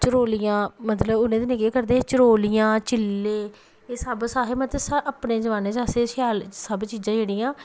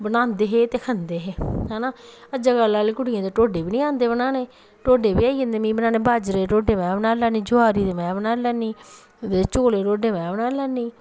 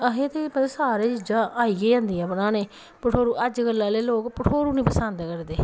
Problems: none marked